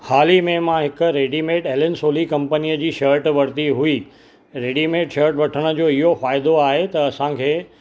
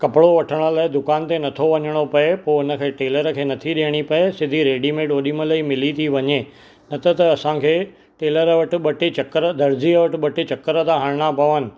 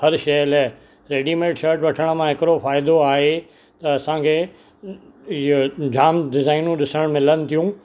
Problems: constant background noise